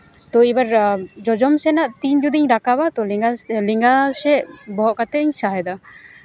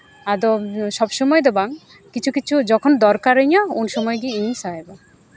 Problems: background sounds at intervals, background conversations at intervals